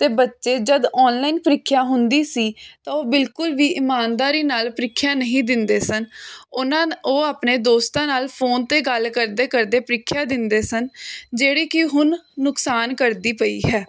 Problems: none marked